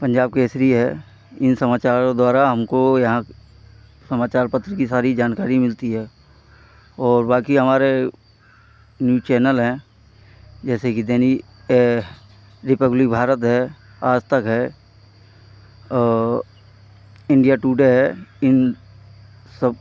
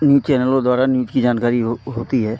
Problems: none marked